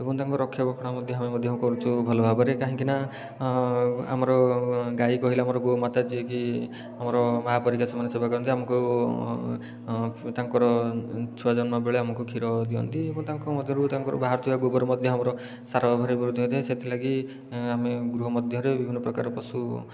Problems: background sounds at intervals, low volume